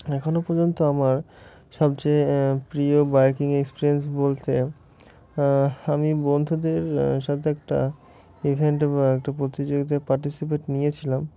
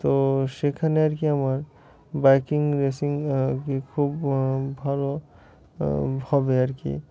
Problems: constant background noise, continuous background conversations